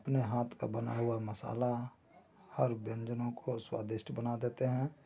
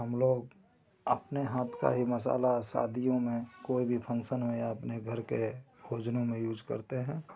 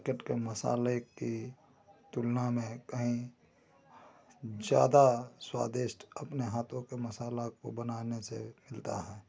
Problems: none marked